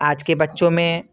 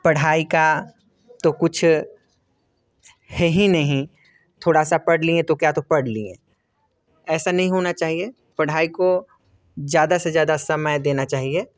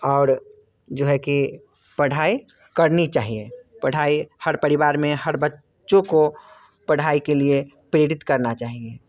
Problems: constant background noise